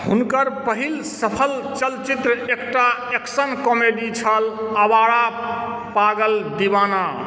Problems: background sounds at intervals